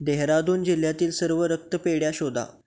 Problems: background sounds at intervals